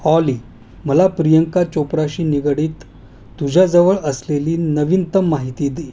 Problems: none marked